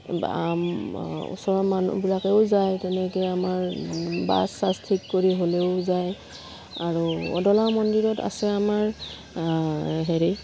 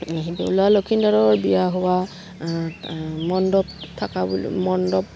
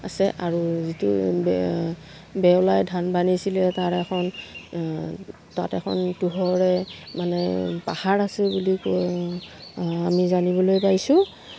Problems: none marked